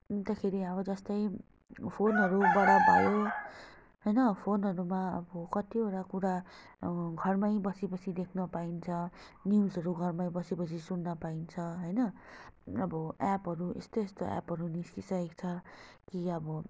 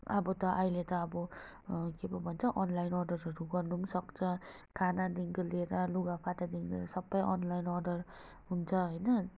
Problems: constant background noise